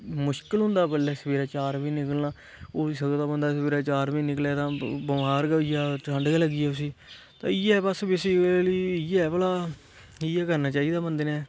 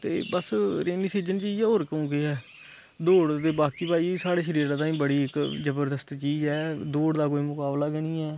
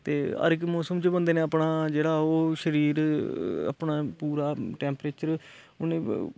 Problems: constant background noise